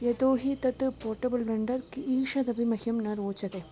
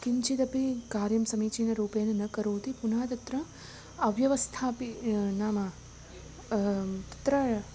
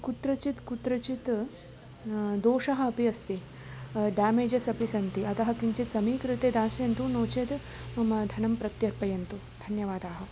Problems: constant background noise